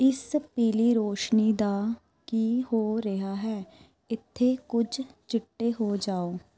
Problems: background conversations at intervals